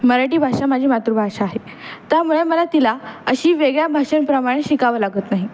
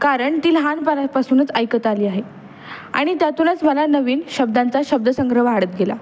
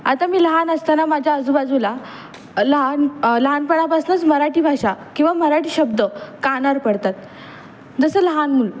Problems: constant background noise